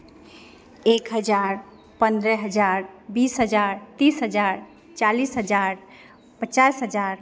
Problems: none marked